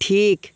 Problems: none marked